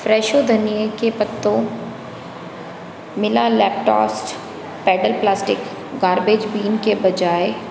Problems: constant background noise